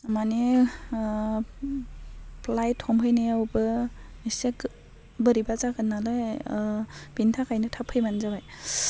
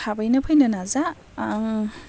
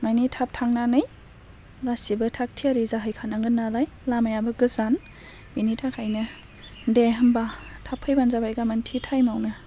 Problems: constant background noise